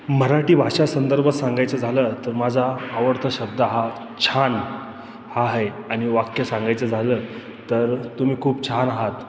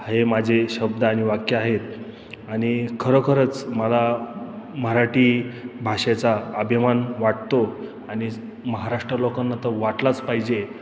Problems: constant background noise, background conversations at intervals